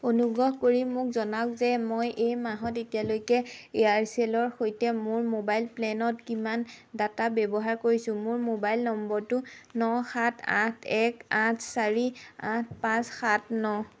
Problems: background sounds at intervals